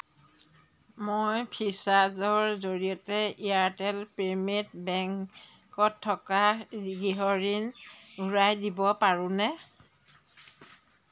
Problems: background sounds at intervals